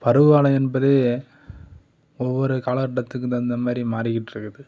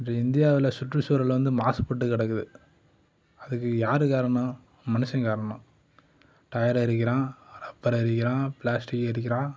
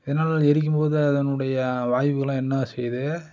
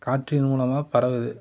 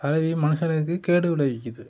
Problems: background conversations at intervals